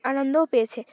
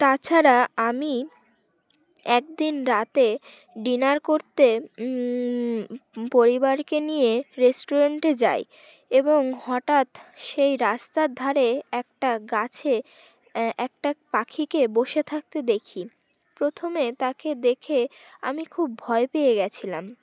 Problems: background sounds at intervals, background conversations at intervals